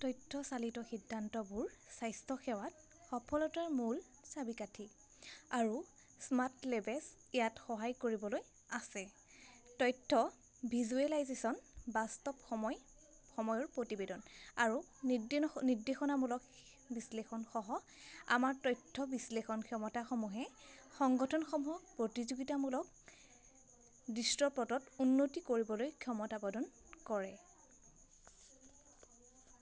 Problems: constant background noise